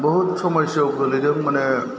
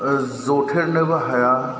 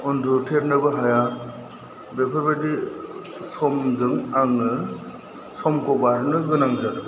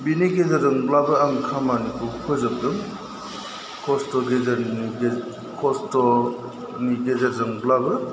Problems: background sounds at intervals